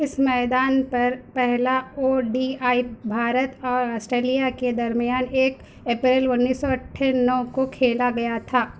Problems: none marked